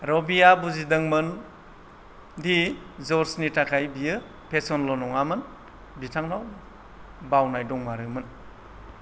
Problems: low volume